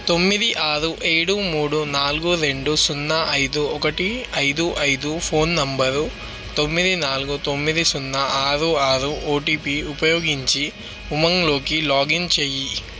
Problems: constant background noise